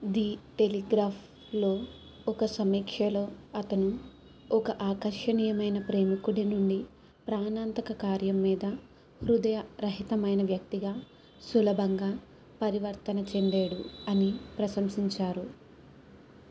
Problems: background sounds at intervals